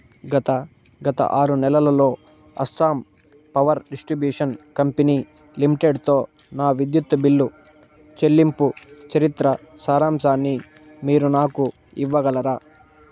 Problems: constant background noise